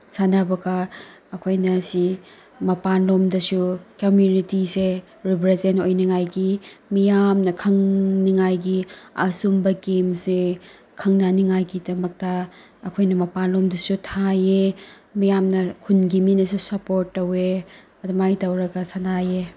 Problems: none marked